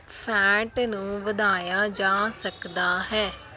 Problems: background sounds at intervals